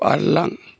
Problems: none marked